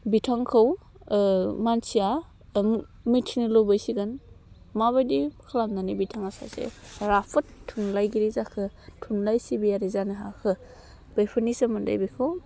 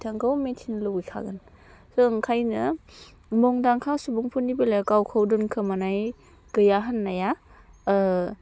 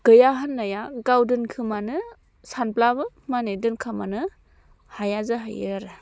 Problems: constant background noise